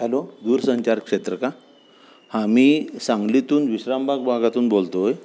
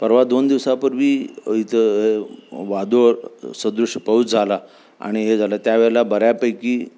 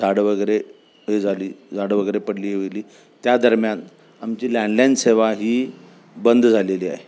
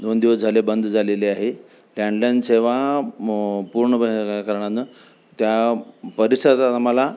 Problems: constant background noise